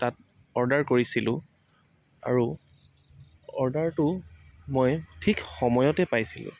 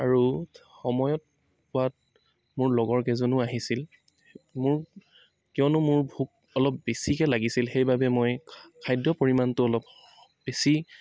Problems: none marked